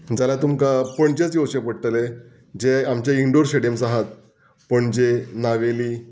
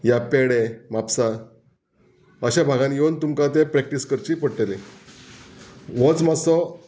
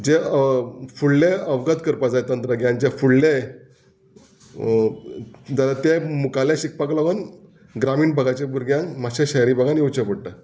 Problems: background sounds at intervals